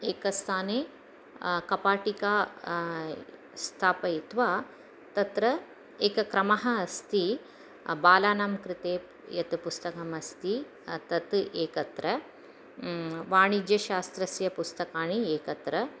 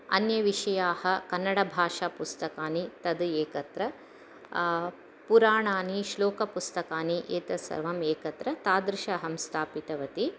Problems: none marked